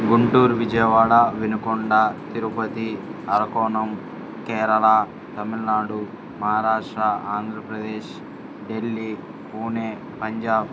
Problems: constant background noise